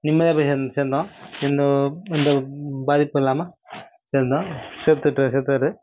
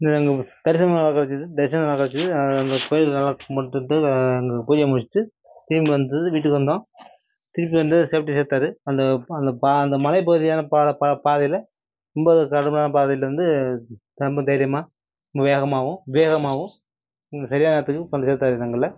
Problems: background sounds at intervals